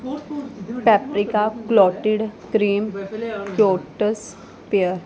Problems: background sounds at intervals